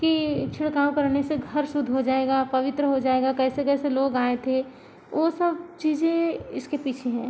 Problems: constant background noise